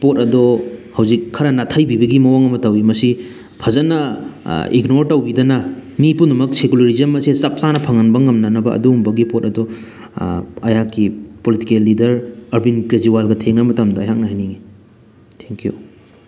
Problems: background sounds at intervals